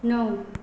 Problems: none marked